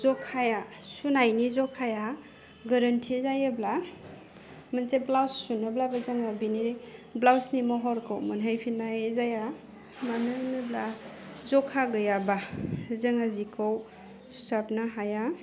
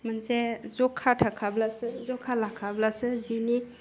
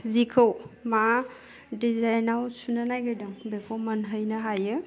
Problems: low volume